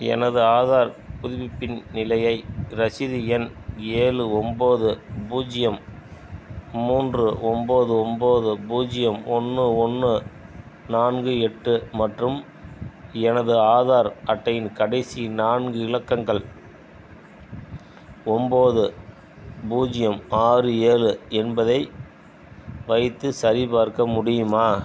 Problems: background sounds at intervals, background conversations at intervals